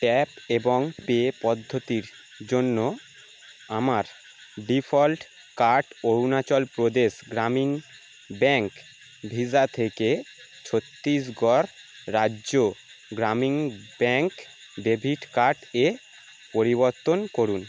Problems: none marked